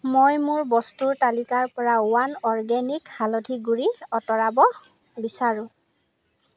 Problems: none marked